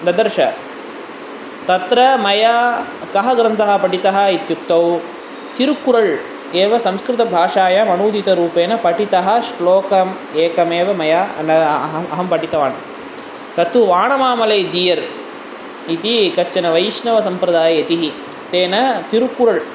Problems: none marked